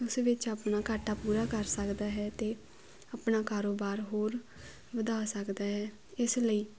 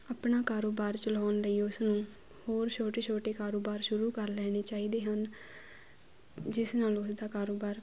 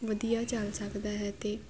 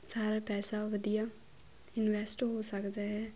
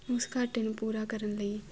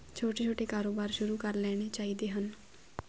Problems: none marked